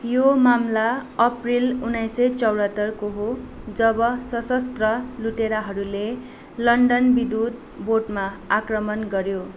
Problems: constant background noise